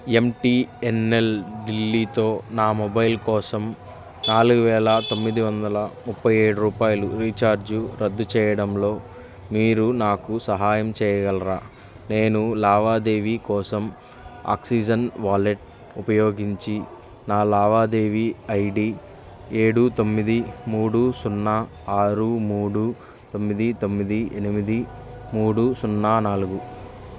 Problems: background sounds at intervals